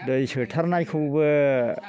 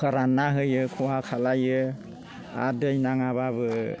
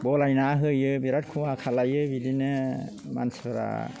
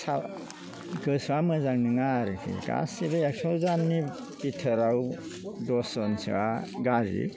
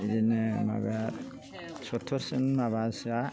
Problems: none marked